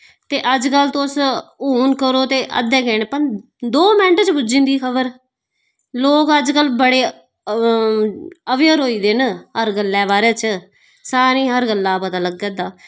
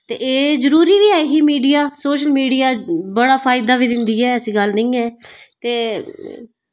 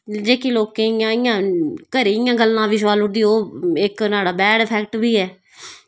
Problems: background sounds at intervals, background conversations at intervals